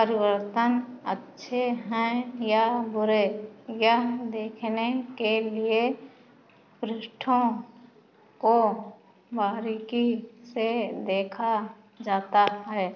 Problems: constant background noise